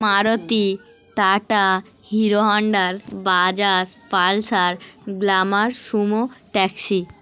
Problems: none marked